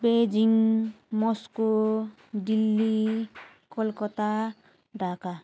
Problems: constant background noise